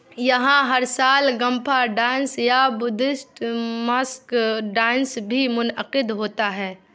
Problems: none marked